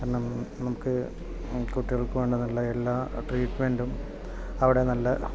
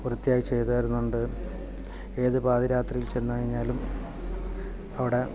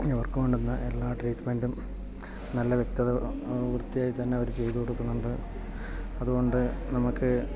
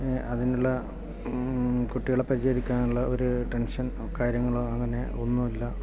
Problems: background conversations at intervals, low volume